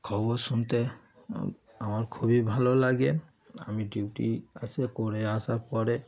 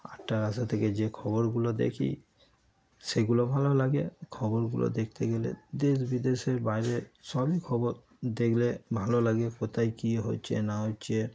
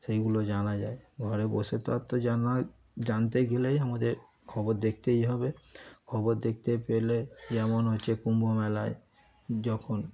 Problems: constant background noise, background conversations at intervals